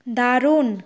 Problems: low volume